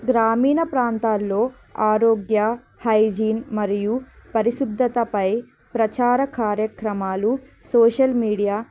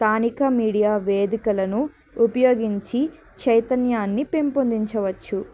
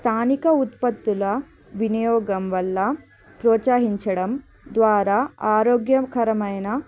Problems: constant background noise, background conversations at intervals